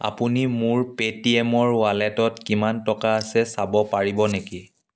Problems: none marked